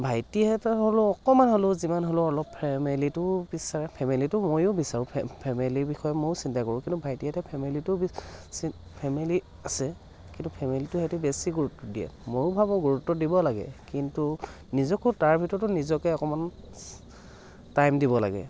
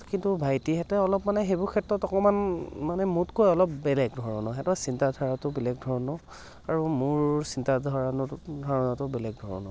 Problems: constant background noise